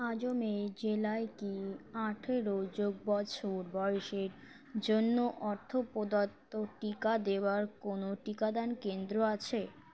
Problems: background sounds at intervals, background conversations at intervals